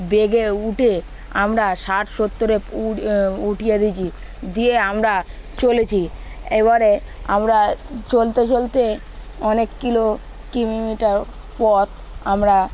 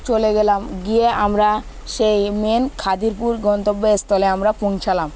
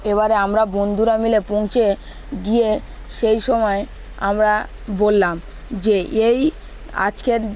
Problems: constant background noise, background conversations at intervals